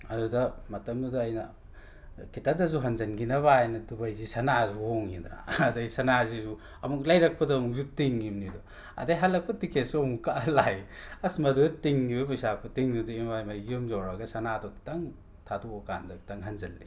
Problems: background sounds at intervals